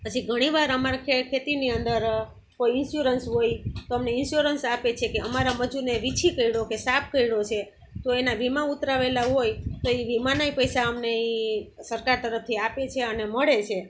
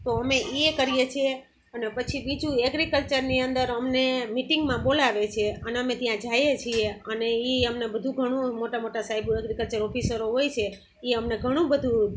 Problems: constant background noise